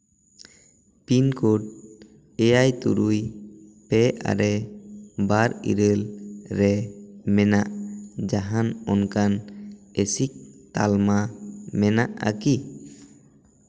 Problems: constant background noise, echo